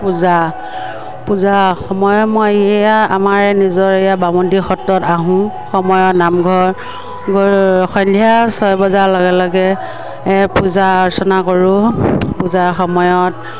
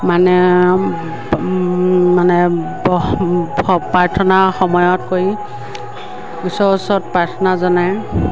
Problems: constant background noise, background conversations at intervals